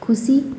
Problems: constant background noise